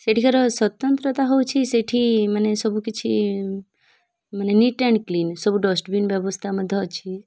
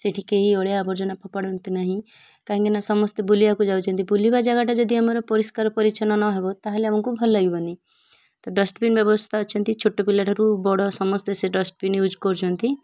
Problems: none marked